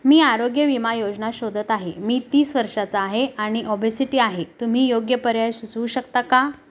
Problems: none marked